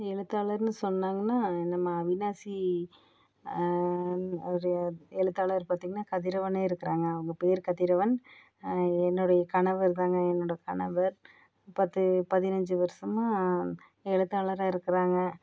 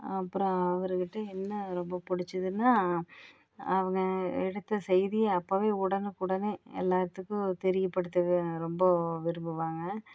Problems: none marked